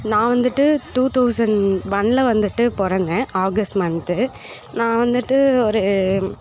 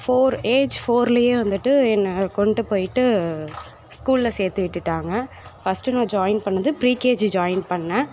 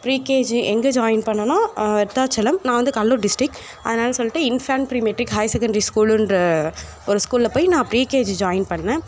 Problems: background sounds at intervals, background conversations at intervals